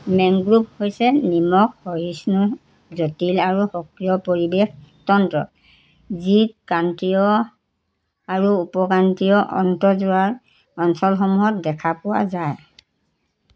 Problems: constant background noise